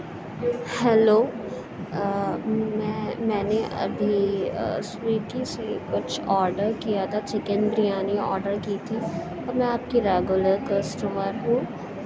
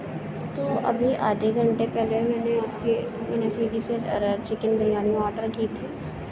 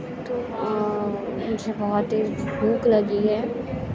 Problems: constant background noise